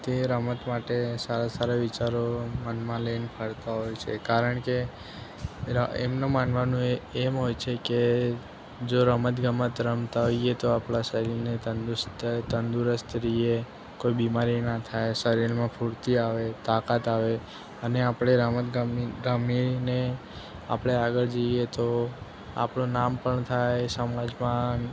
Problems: background sounds at intervals